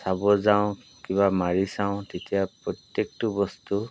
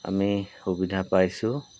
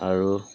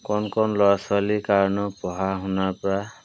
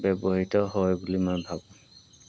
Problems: background sounds at intervals